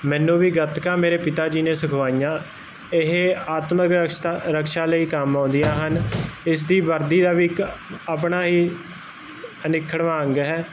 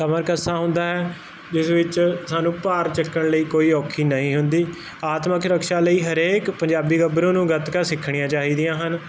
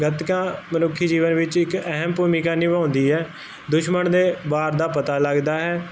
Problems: constant background noise